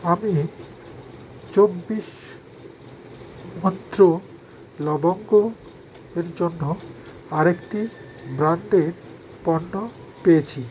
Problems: constant background noise